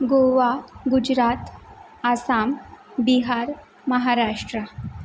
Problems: background sounds at intervals